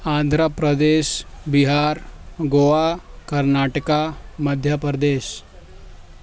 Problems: none marked